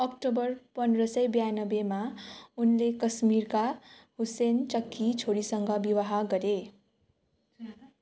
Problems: continuous background conversations